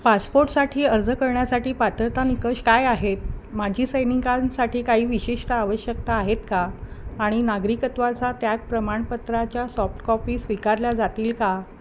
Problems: constant background noise